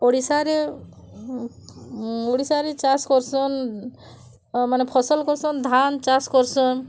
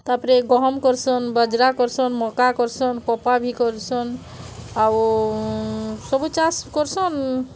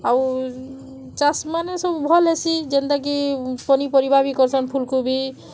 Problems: none marked